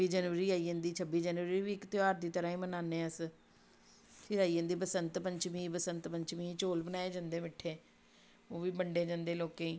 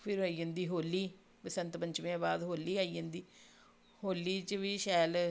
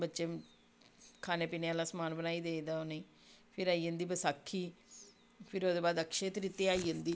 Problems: background sounds at intervals